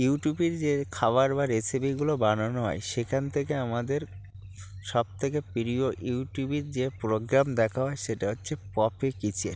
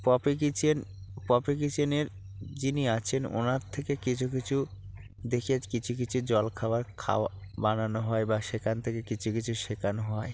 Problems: constant background noise, background conversations at intervals